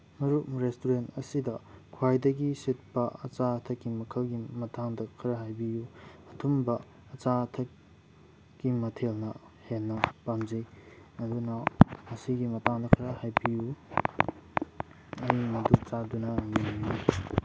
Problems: background sounds at intervals